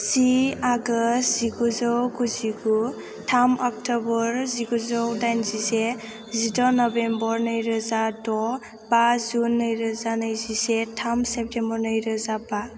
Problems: background sounds at intervals